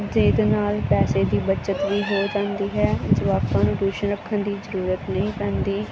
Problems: none marked